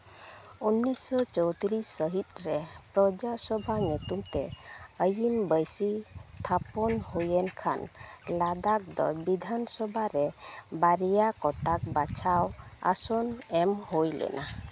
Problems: none marked